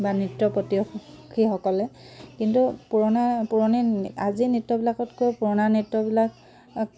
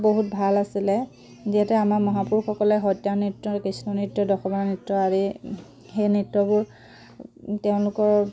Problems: none marked